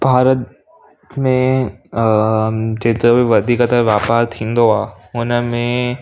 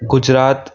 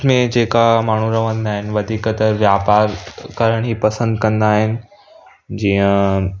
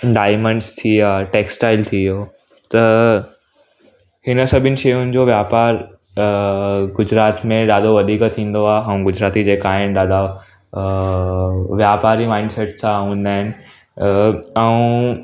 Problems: background sounds at intervals